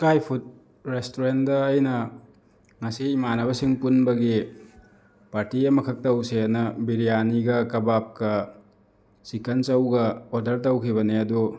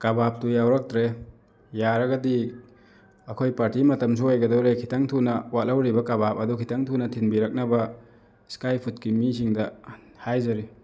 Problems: background sounds at intervals